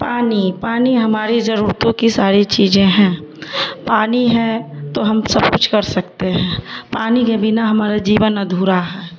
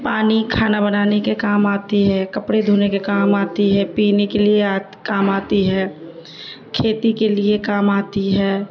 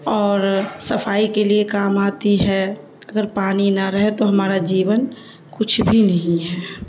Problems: constant background noise, low volume